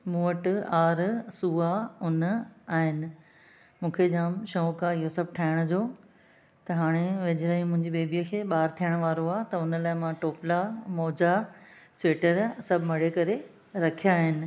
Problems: none marked